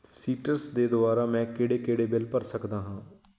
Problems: none marked